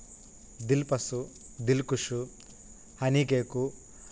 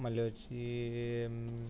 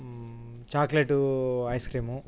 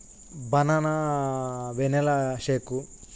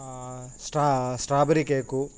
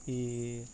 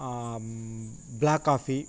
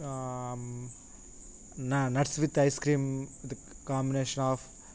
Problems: constant background noise